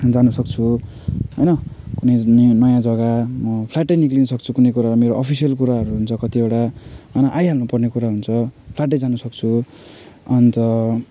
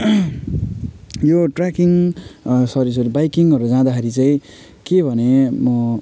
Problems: none marked